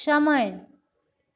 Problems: constant background noise